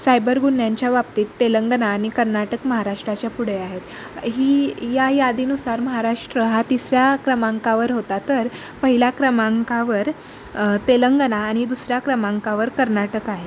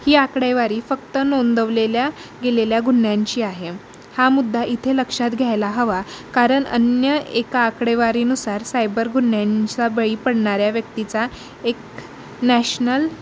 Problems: constant background noise